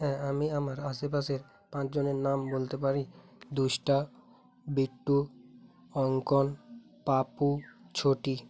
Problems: background sounds at intervals, continuous background conversations